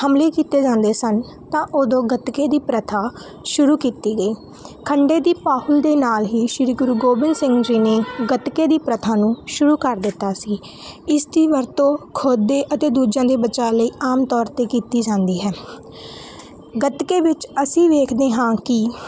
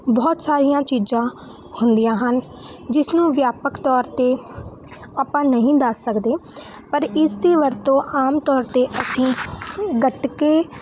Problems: background sounds at intervals